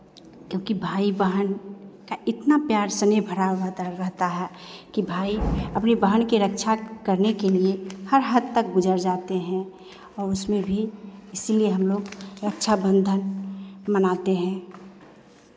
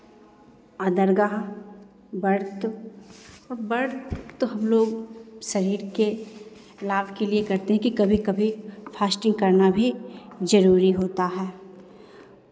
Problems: background sounds at intervals